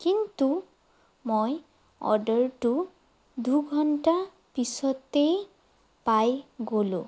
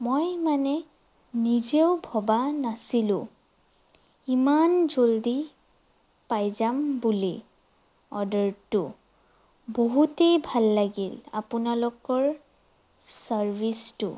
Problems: none marked